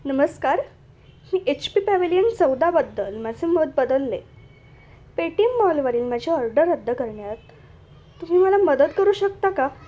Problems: none marked